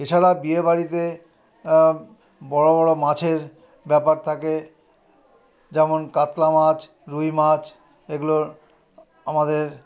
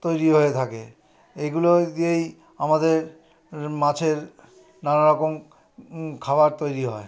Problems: continuous background conversations